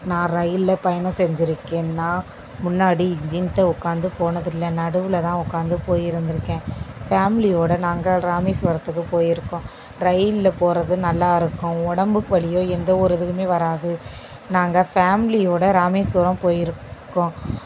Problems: constant background noise